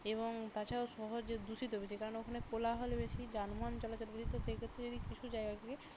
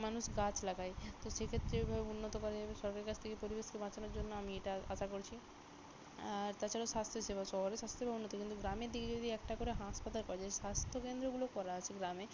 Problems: none marked